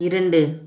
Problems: none marked